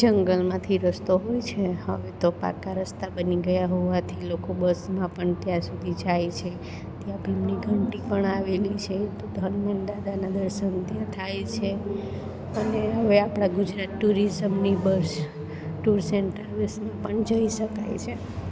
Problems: none marked